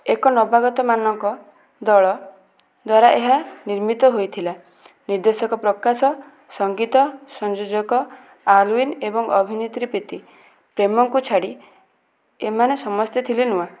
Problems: background sounds at intervals